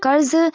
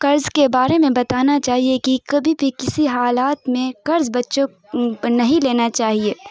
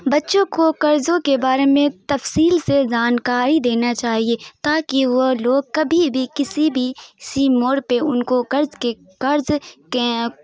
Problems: none marked